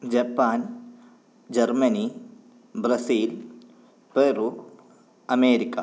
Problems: none marked